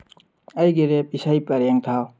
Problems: none marked